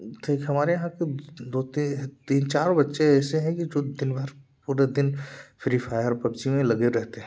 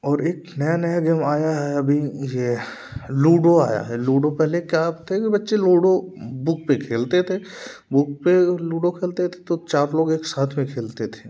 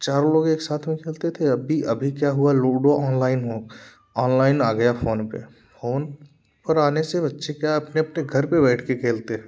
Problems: none marked